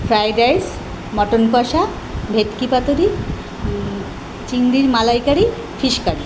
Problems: constant background noise